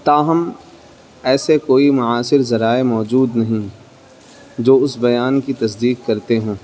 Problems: constant background noise